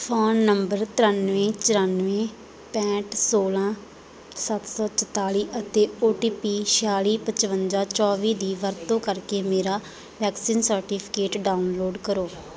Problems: background conversations at intervals